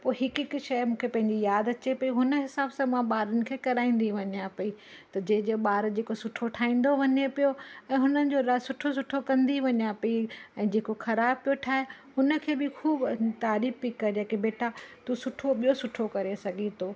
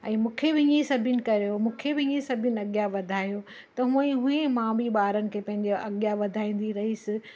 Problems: constant background noise